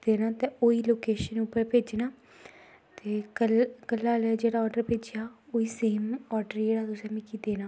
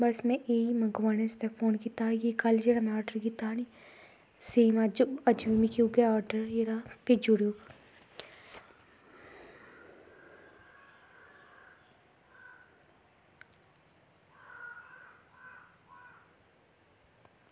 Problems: constant background noise